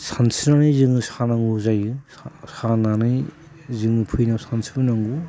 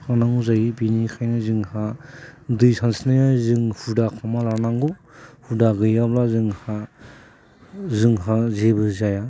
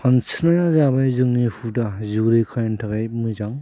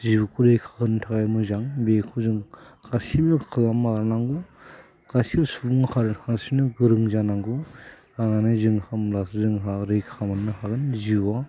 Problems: constant background noise